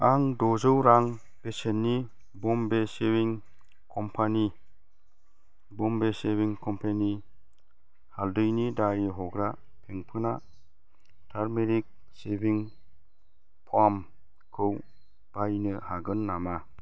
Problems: constant background noise